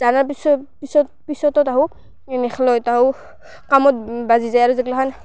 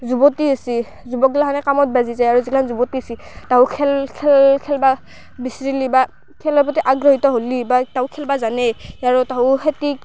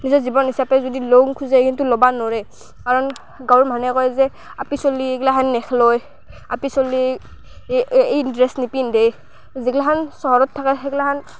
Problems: constant background noise, background conversations at intervals